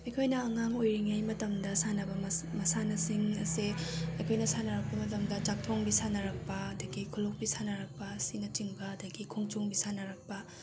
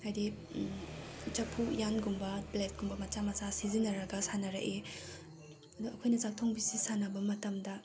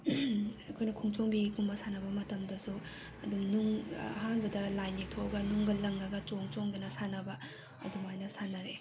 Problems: background sounds at intervals